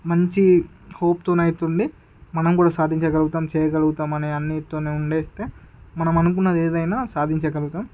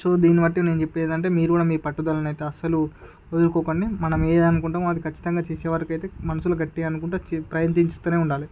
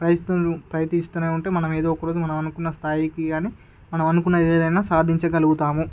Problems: background sounds at intervals